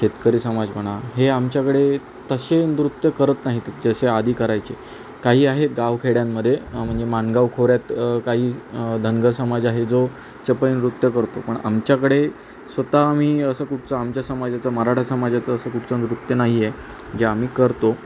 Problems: constant background noise